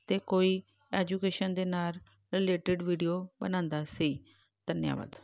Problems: background sounds at intervals